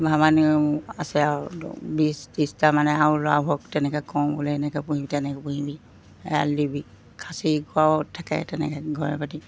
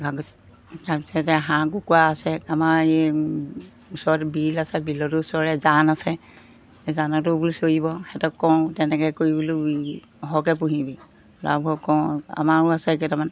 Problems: constant background noise